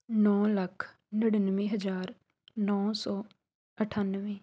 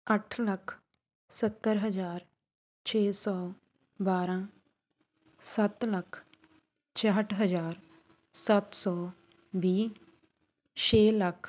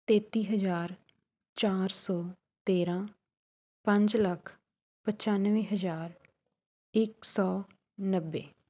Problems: none marked